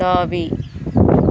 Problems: constant background noise